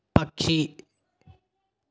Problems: none marked